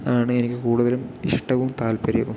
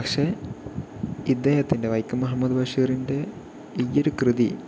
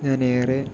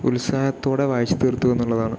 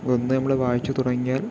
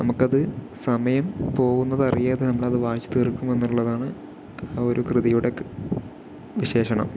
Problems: low volume